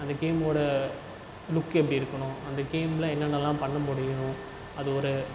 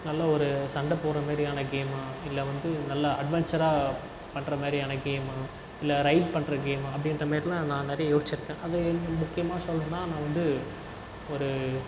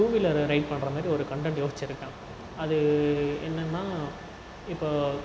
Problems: constant background noise, low volume